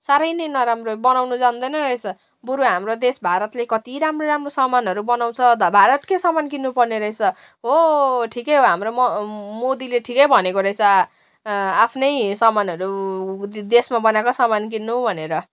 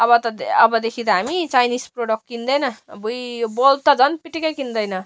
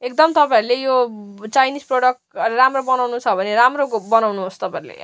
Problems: constant background noise